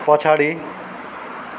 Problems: background sounds at intervals